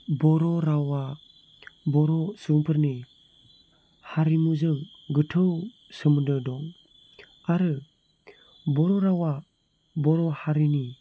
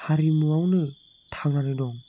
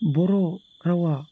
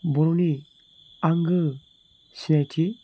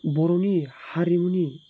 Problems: low volume